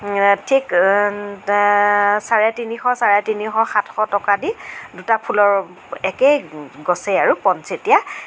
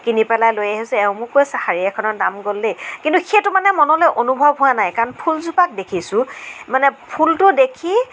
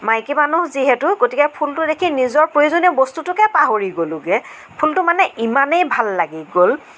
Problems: none marked